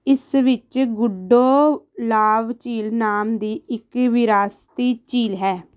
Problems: background sounds at intervals